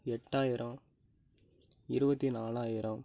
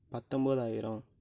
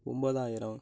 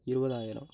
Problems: low volume